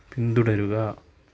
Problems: low volume